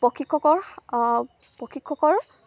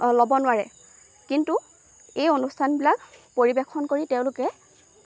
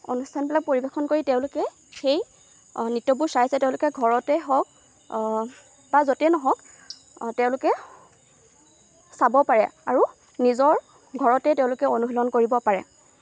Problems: constant background noise